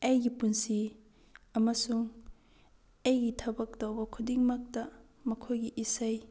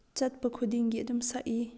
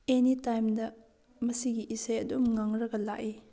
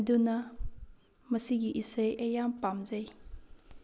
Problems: low volume